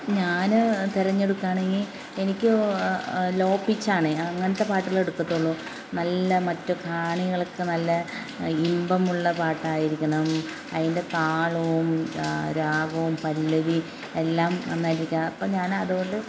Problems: constant background noise